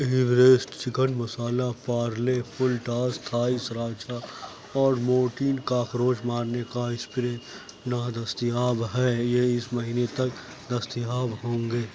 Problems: low volume